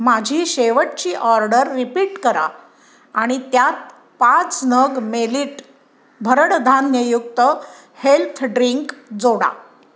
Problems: background sounds at intervals